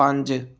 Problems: none marked